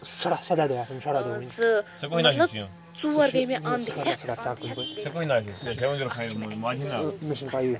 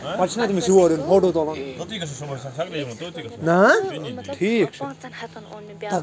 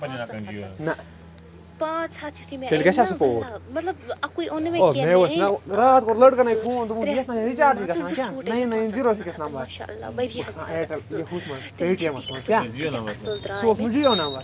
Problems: constant background noise, low volume